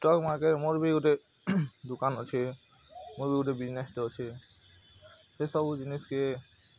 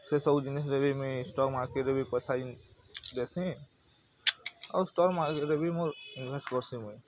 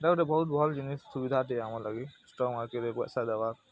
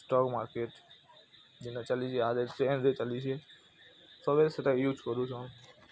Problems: background sounds at intervals, background conversations at intervals